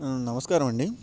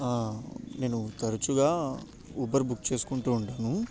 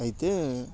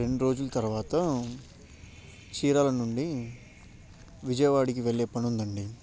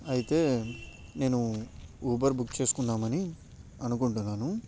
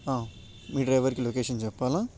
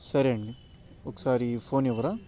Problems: none marked